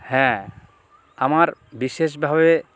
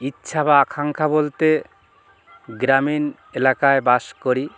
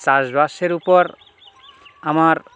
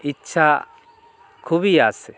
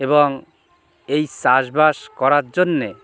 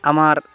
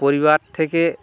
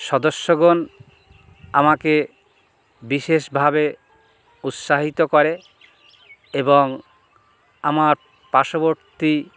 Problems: background sounds at intervals, background conversations at intervals